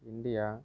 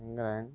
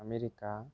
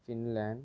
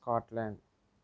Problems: low volume